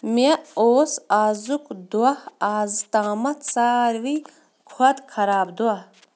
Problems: background sounds at intervals